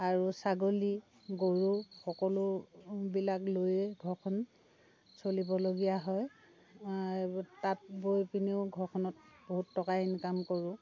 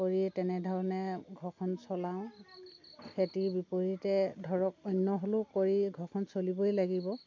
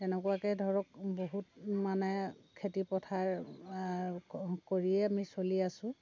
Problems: constant background noise, background conversations at intervals